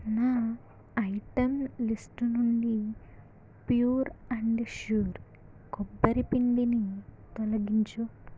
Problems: low volume